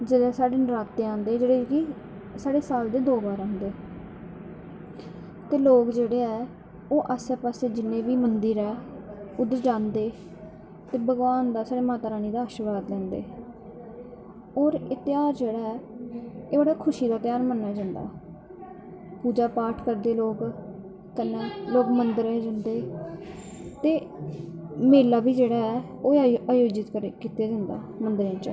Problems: constant background noise